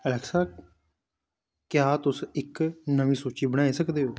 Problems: background conversations at intervals